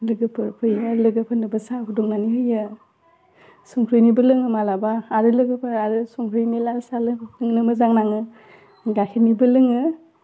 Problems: none marked